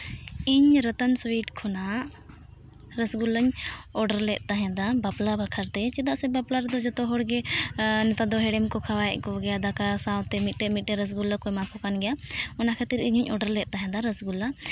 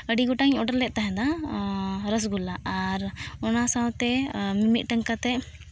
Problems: background sounds at intervals